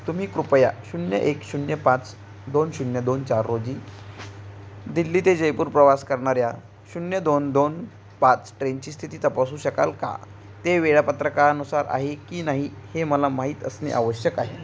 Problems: none marked